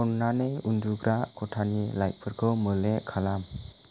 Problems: constant background noise